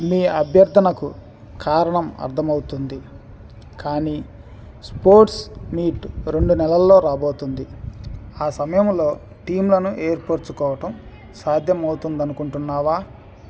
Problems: constant background noise